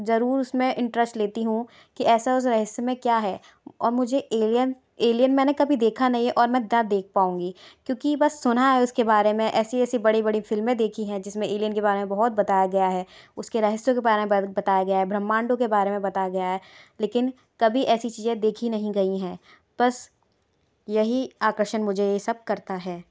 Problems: none marked